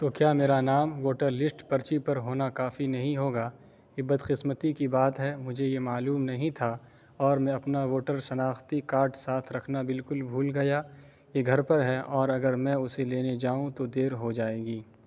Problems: none marked